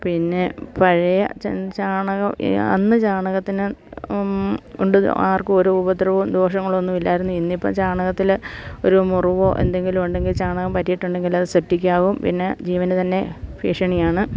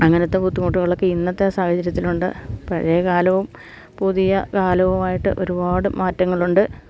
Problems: none marked